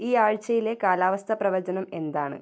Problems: none marked